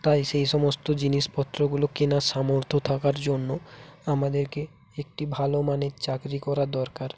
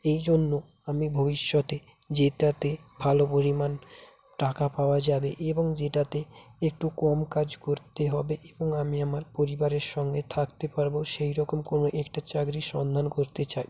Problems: continuous background conversations